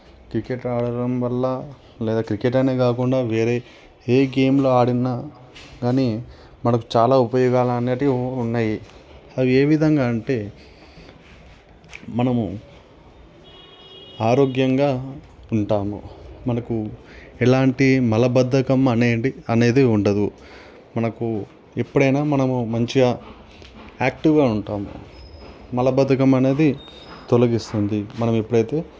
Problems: constant background noise